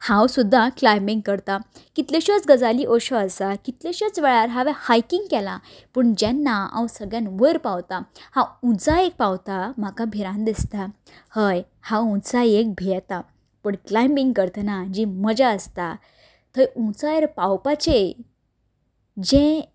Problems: constant background noise